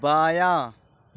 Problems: none marked